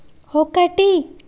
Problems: background sounds at intervals